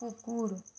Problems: low volume